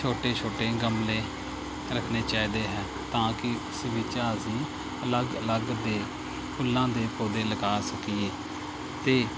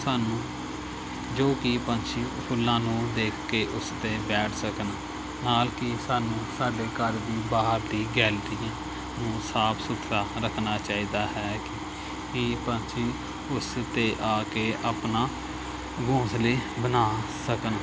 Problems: none marked